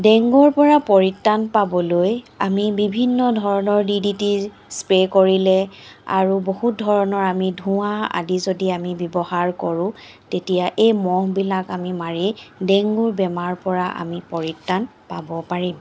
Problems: constant background noise